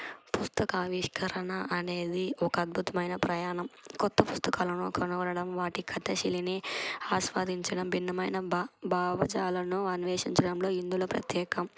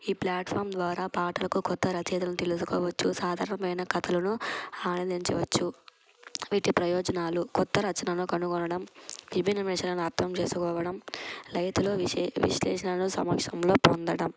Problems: constant background noise